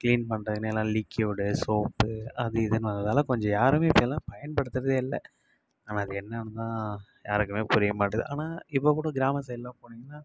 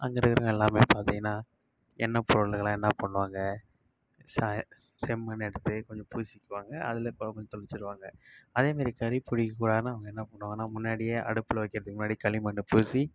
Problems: constant background noise